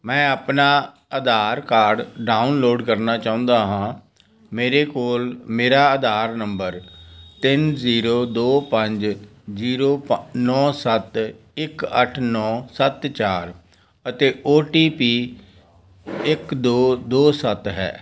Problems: none marked